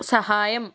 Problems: constant background noise